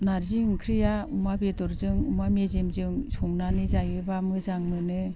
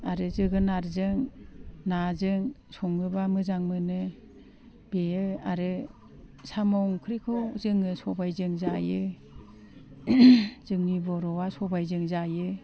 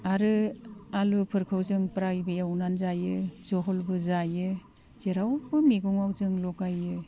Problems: constant background noise